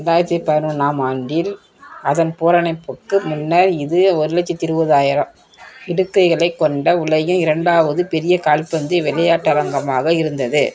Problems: background conversations at intervals